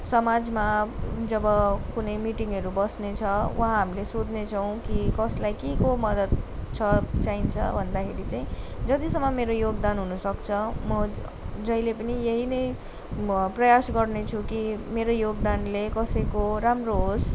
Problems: none marked